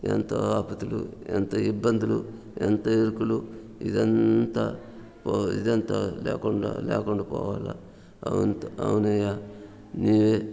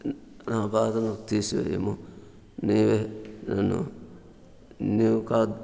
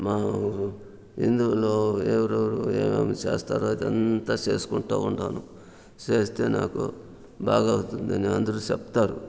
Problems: background sounds at intervals, background conversations at intervals